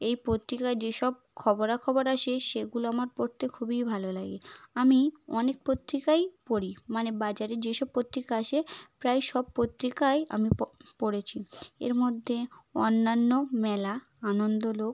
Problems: none marked